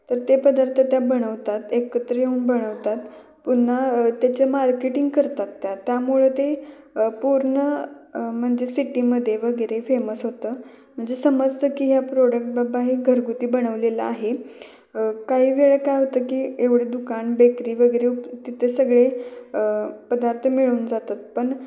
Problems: background sounds at intervals, continuous background conversations, echo